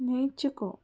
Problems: none marked